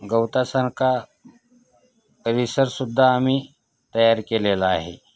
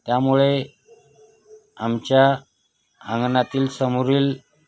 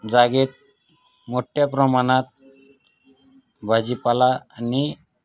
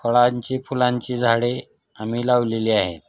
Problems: none marked